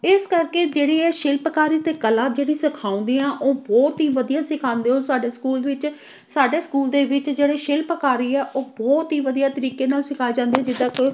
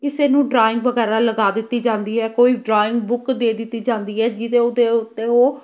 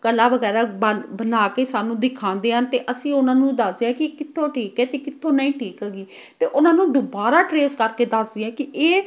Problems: background sounds at intervals